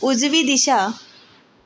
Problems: echo